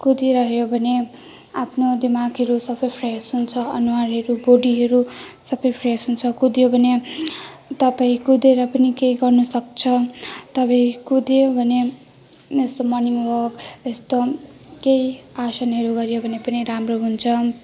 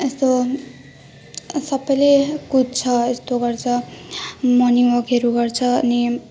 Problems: none marked